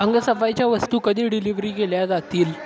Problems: constant background noise, background conversations at intervals